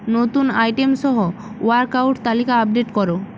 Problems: constant background noise